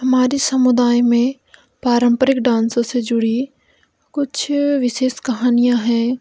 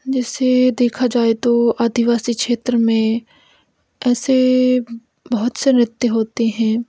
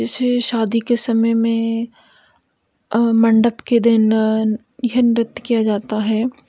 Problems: none marked